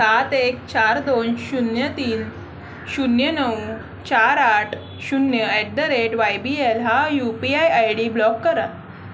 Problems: none marked